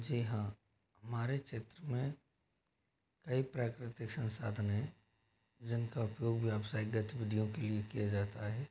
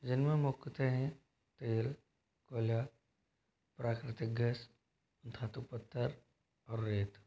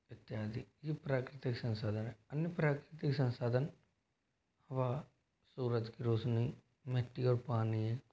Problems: constant background noise